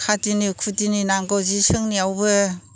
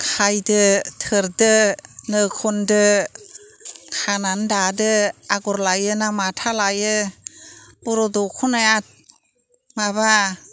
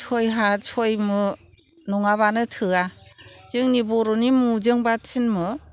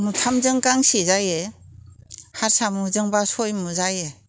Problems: none marked